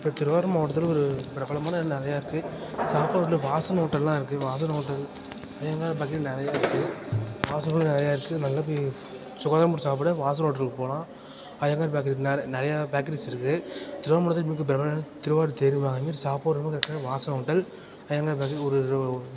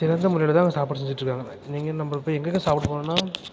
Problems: constant background noise, background conversations at intervals